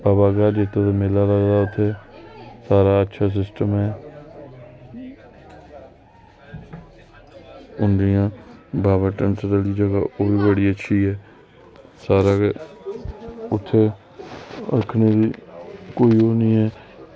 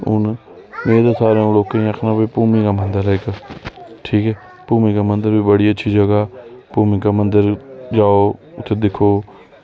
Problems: background sounds at intervals